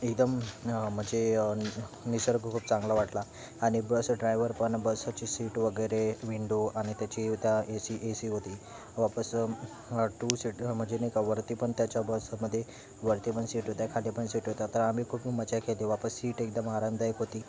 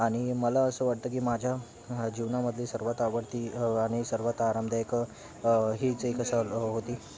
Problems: constant background noise